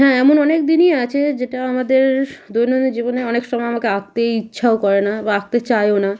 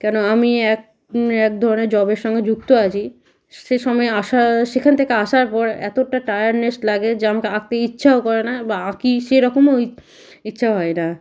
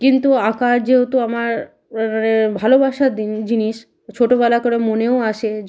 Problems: constant background noise